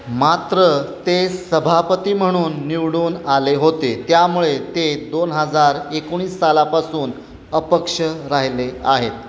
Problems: constant background noise